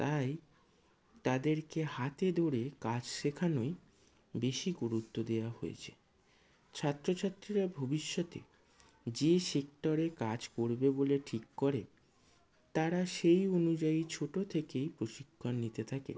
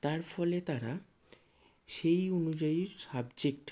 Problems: low volume